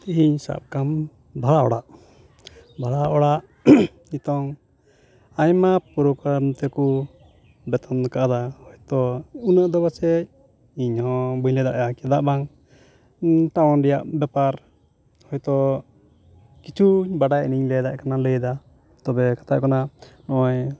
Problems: background sounds at intervals